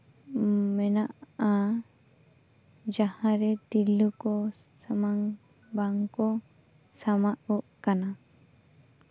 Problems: none marked